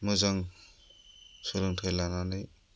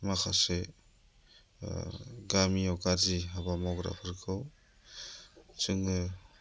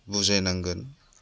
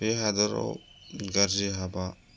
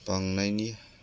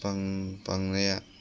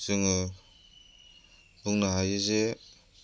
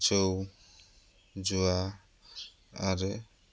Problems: low volume